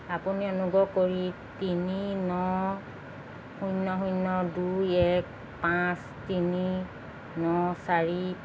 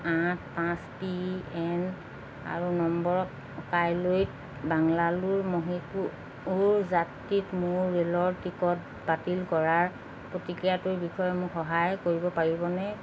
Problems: constant background noise